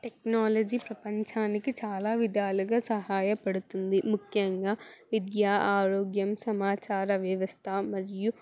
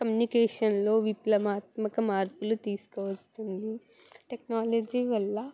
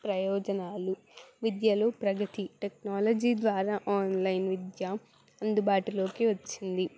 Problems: background sounds at intervals